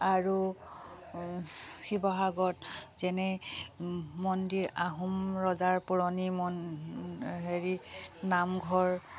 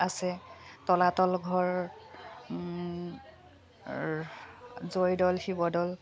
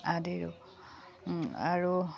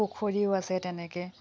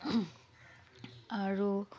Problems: background sounds at intervals